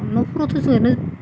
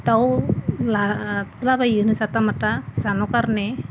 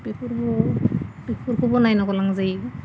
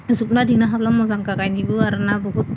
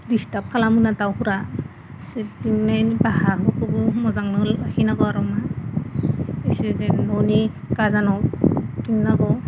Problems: constant background noise